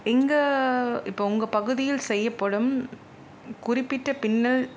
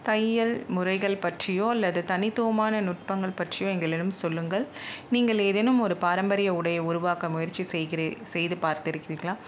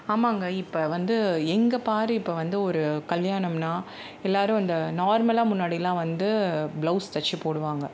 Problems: none marked